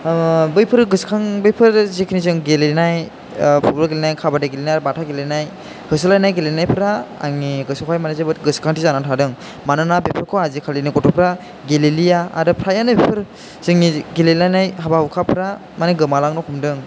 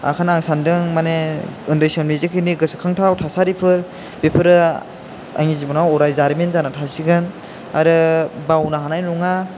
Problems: constant background noise